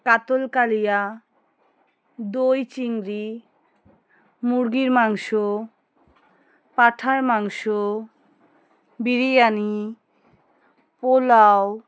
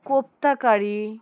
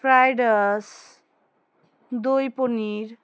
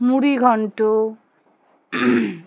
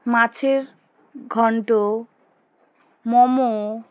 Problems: background conversations at intervals